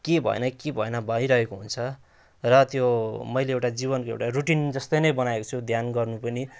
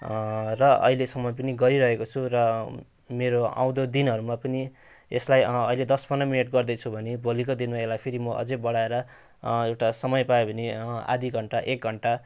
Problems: none marked